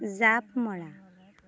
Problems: background conversations at intervals